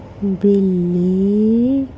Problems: constant background noise